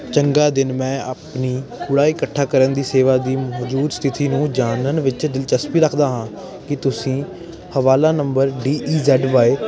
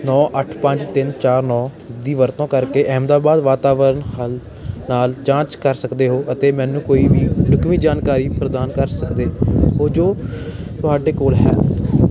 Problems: continuous background conversations